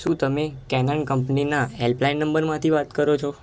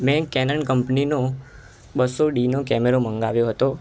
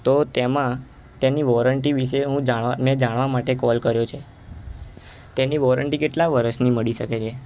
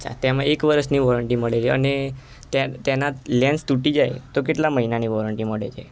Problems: constant background noise